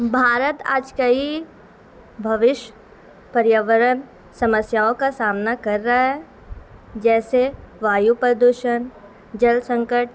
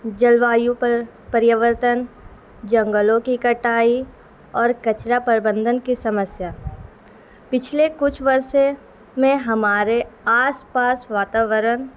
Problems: constant background noise